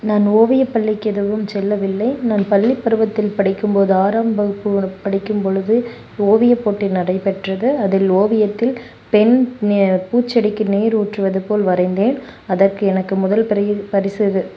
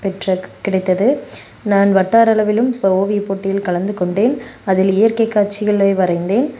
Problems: background sounds at intervals